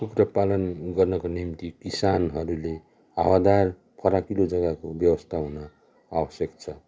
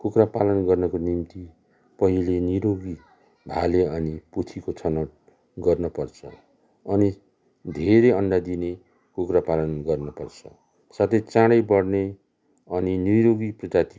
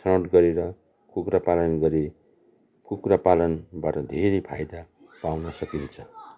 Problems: background sounds at intervals